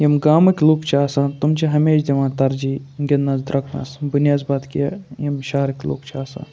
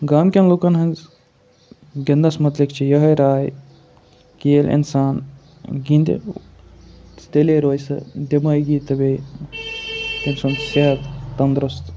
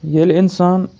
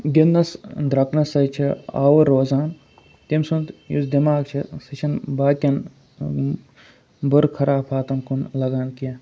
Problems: none marked